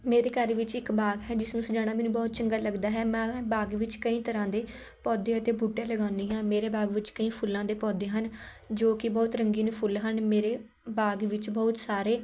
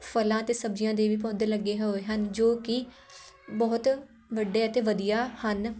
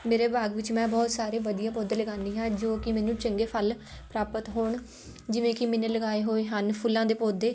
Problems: none marked